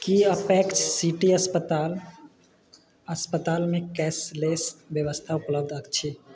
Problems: background sounds at intervals